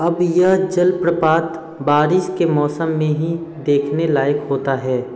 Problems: constant background noise, background conversations at intervals